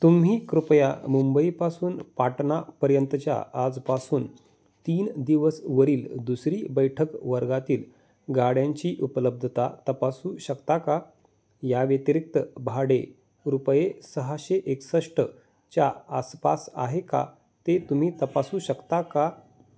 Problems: constant background noise, background conversations at intervals